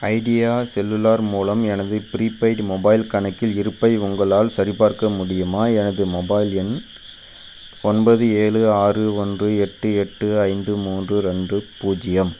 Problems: constant background noise